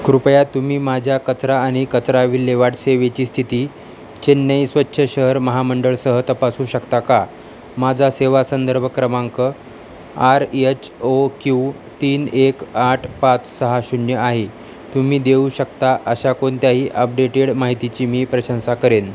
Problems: none marked